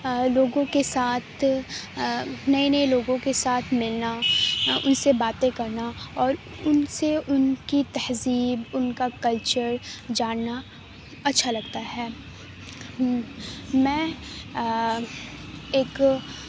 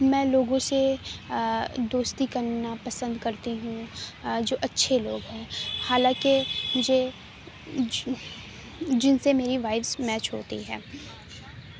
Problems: none marked